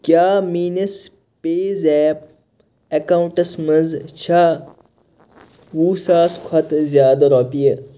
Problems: none marked